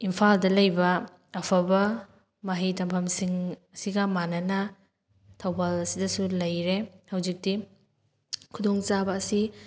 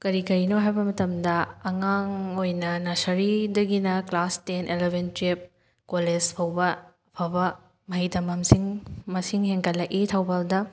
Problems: none marked